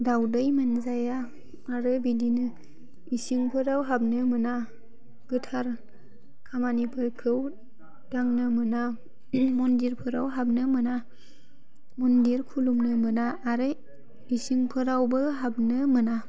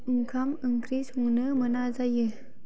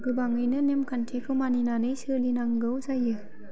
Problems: constant background noise